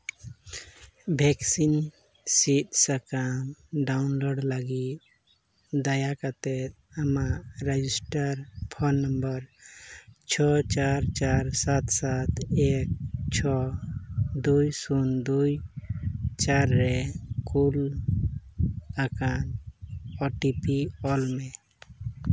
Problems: none marked